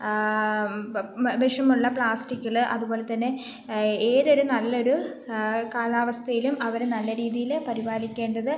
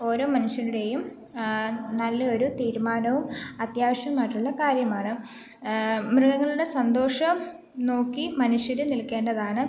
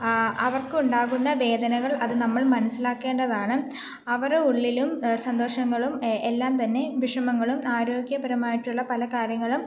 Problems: none marked